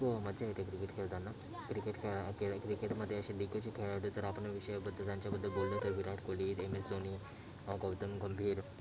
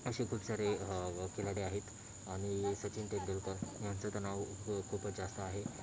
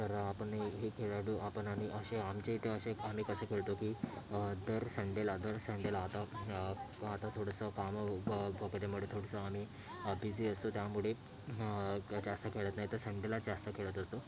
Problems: constant background noise, continuous background conversations